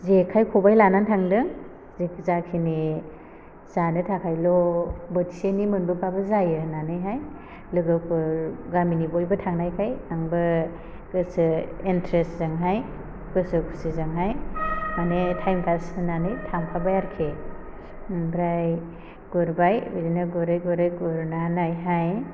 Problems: constant background noise